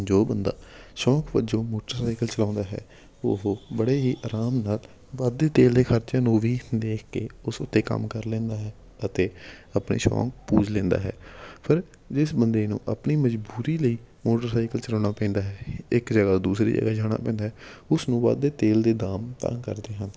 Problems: none marked